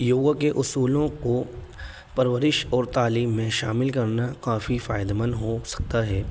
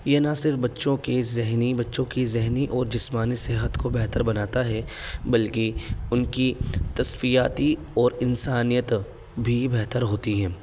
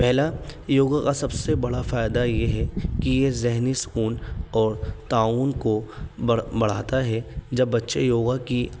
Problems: background sounds at intervals